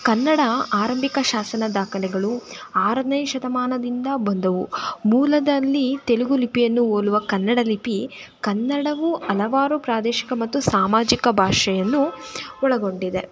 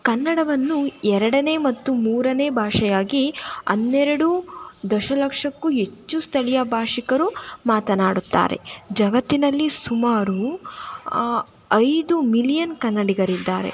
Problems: constant background noise